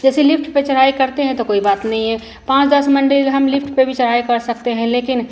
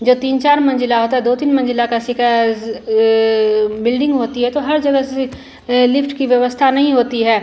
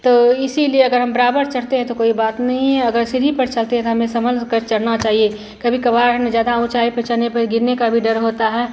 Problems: constant background noise